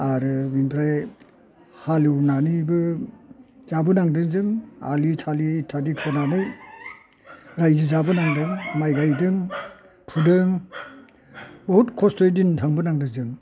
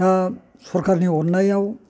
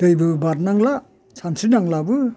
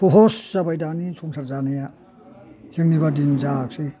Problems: low volume